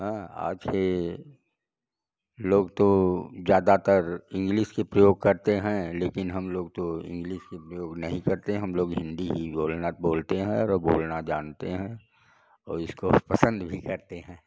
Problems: none marked